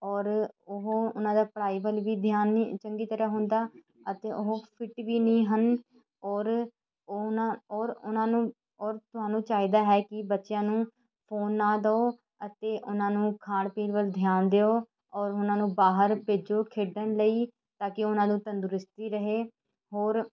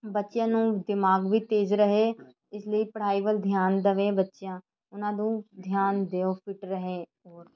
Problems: continuous background conversations